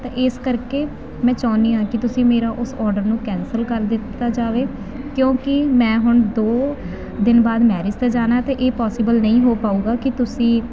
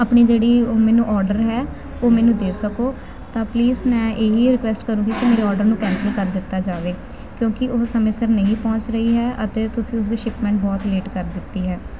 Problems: none marked